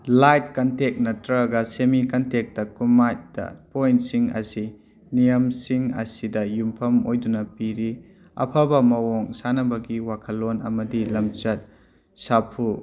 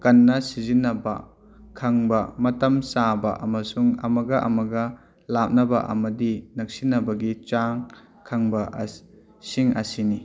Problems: background conversations at intervals